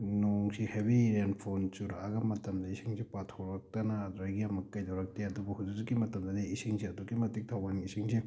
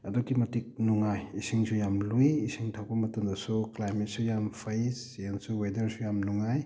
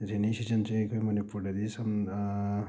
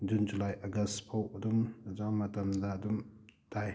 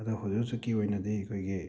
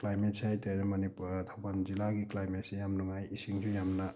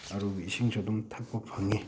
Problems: none marked